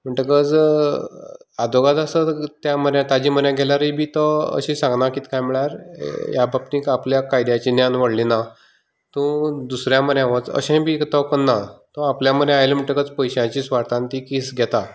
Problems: continuous background conversations